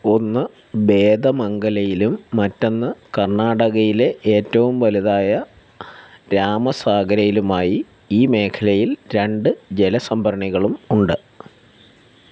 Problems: constant background noise